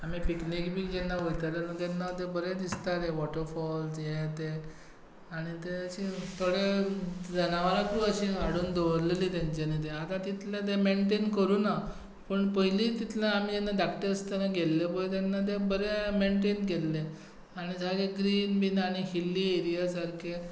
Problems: none marked